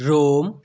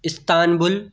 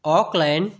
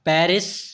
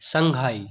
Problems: none marked